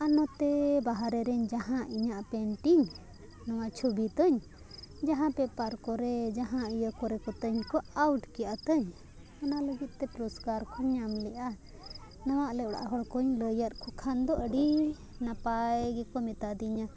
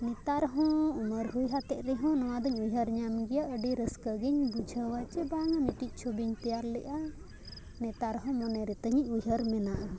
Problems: background sounds at intervals, background conversations at intervals